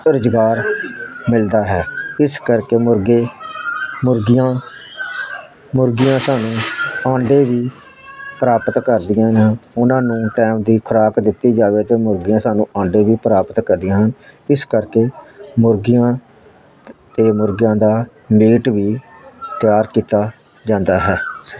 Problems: constant background noise